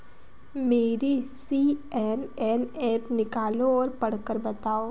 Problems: constant background noise